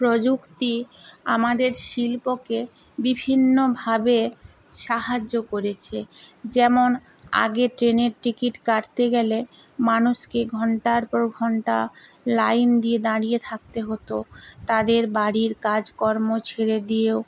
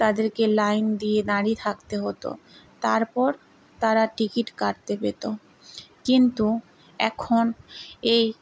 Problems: constant background noise